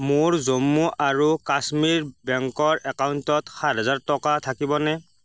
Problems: none marked